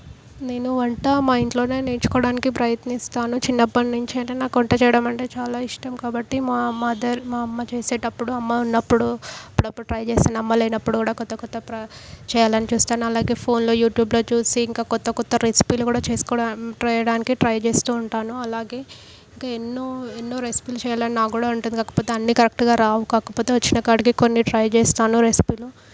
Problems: none marked